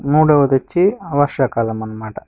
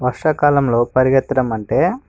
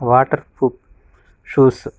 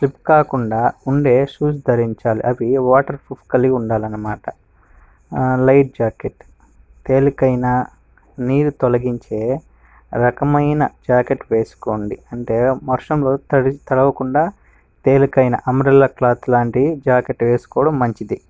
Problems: background sounds at intervals